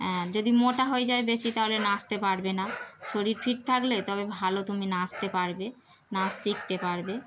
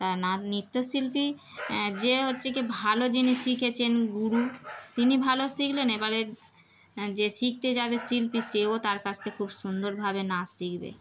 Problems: background sounds at intervals